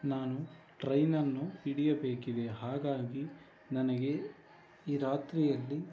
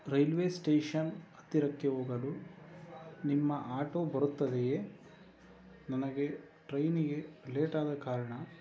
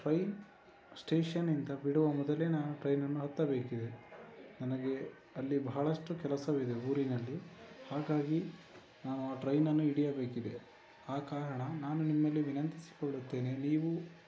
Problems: constant background noise